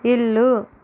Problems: none marked